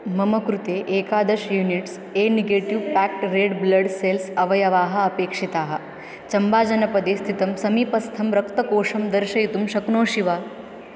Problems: constant background noise